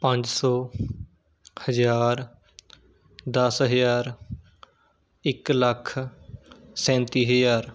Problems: none marked